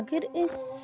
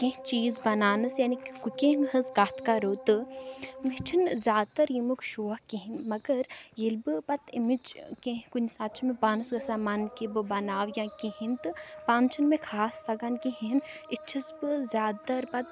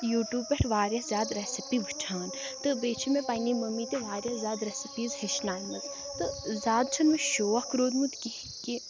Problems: background sounds at intervals, background conversations at intervals